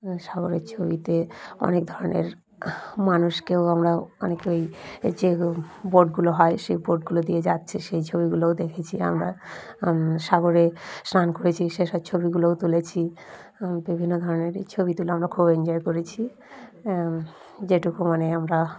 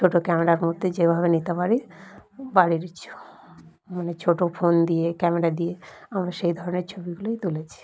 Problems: none marked